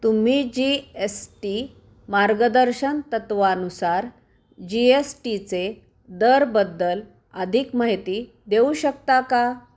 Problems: none marked